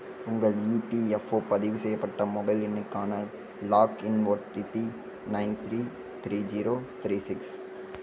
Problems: constant background noise